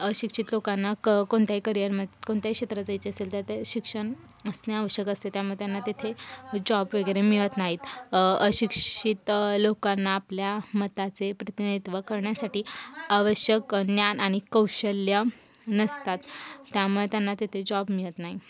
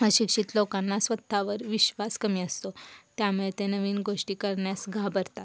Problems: constant background noise, background conversations at intervals